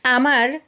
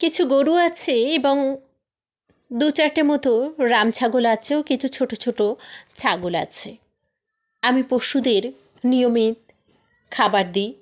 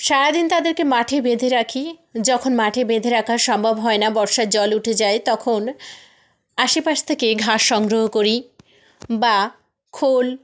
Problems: none marked